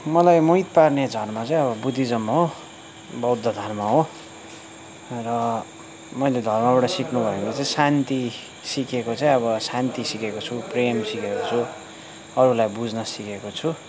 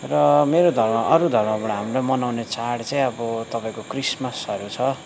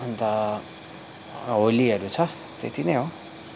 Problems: constant background noise